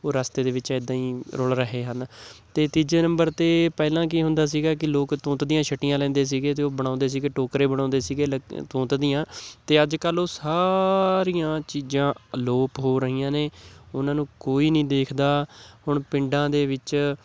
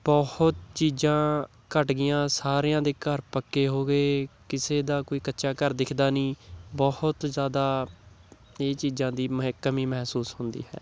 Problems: none marked